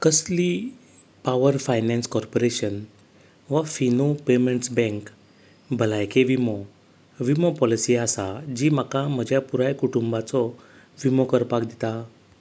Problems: none marked